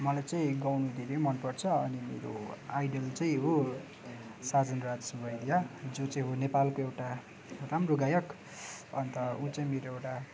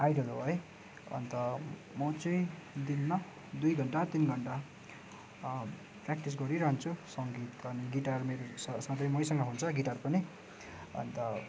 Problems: constant background noise